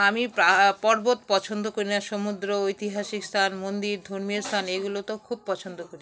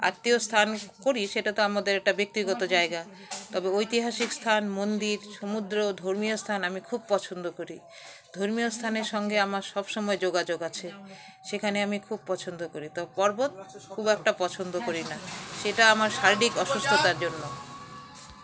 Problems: none marked